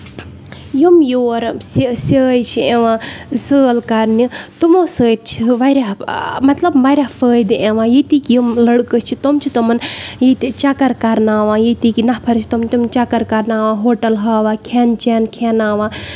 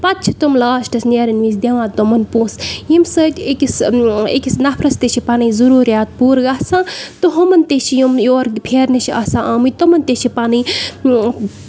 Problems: background sounds at intervals